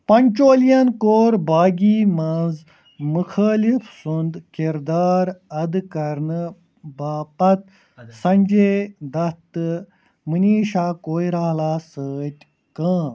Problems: constant background noise